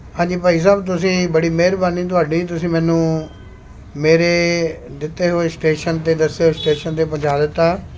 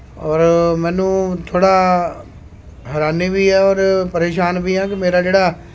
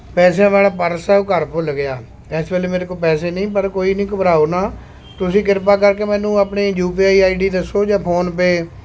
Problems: constant background noise